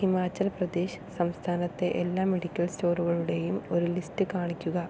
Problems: low volume